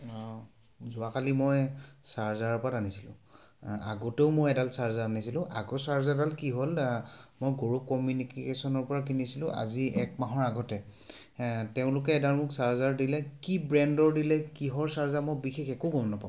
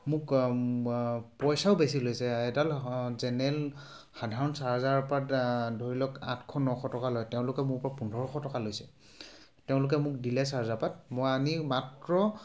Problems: background sounds at intervals